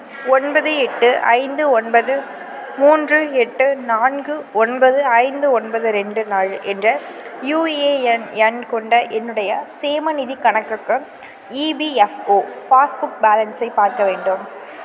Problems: background sounds at intervals